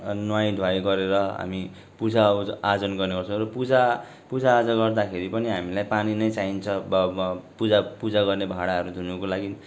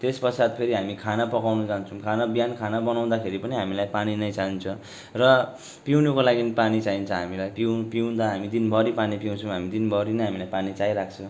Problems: background sounds at intervals